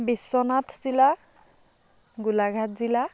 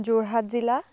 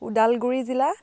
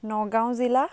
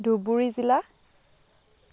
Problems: continuous background conversations